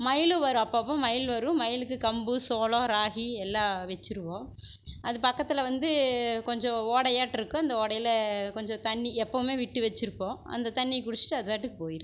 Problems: constant background noise